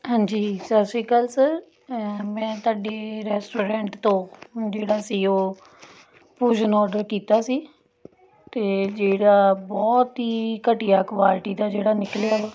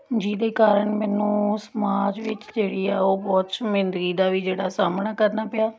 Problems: none marked